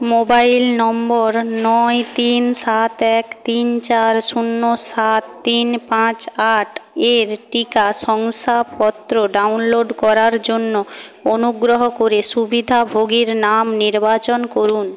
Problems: none marked